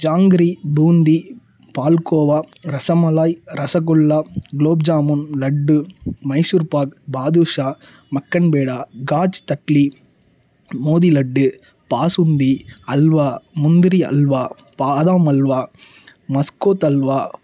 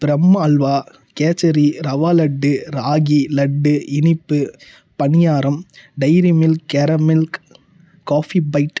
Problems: low volume